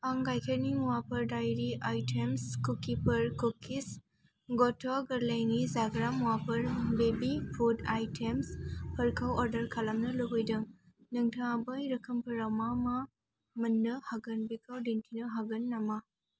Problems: constant background noise